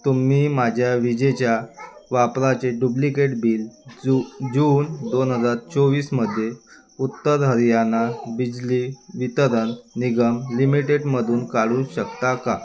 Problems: background sounds at intervals